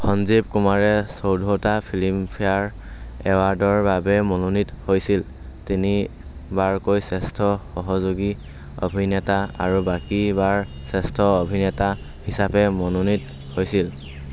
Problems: constant background noise